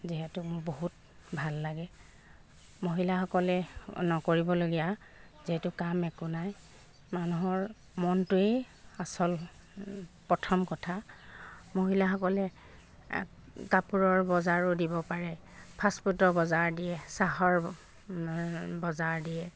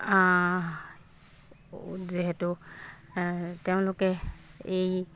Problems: background sounds at intervals